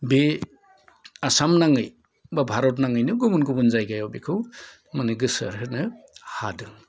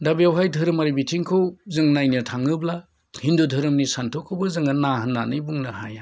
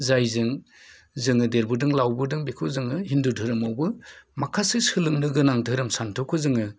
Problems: low volume